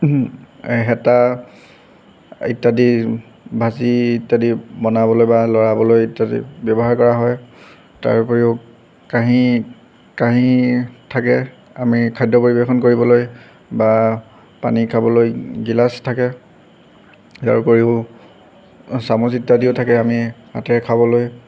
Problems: background sounds at intervals